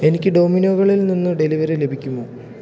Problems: low volume